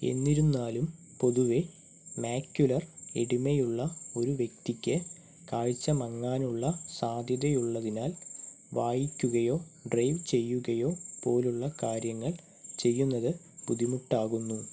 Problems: background sounds at intervals